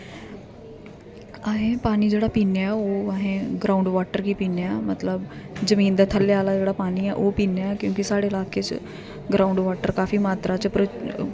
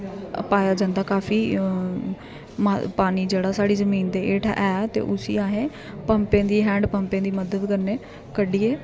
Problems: constant background noise